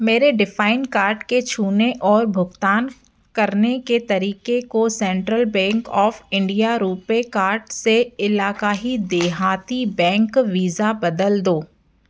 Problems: constant background noise